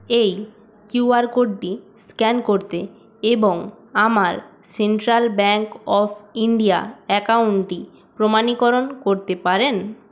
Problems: background sounds at intervals